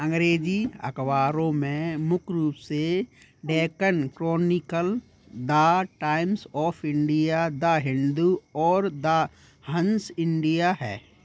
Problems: background sounds at intervals